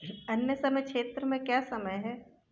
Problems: constant background noise